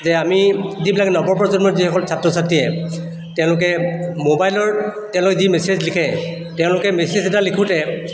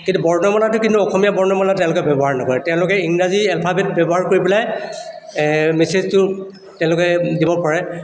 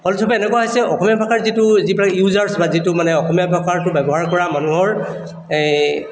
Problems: none marked